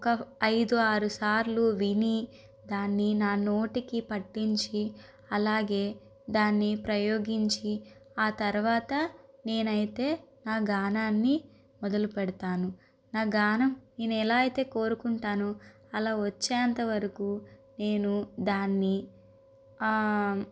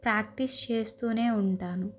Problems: none marked